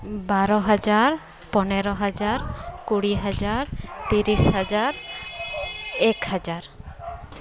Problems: constant background noise